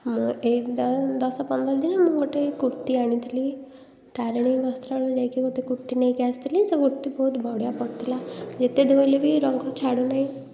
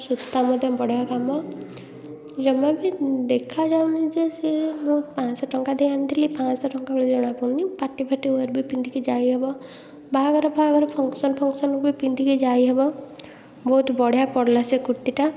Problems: constant background noise, continuous background conversations